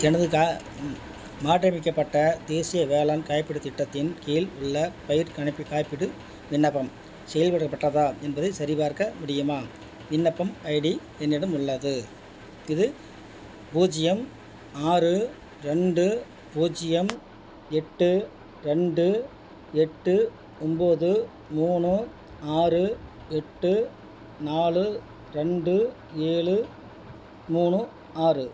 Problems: none marked